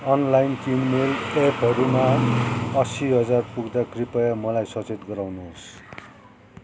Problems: constant background noise